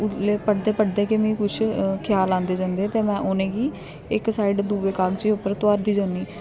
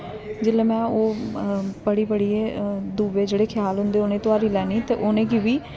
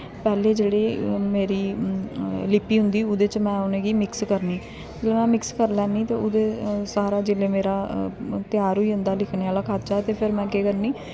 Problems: constant background noise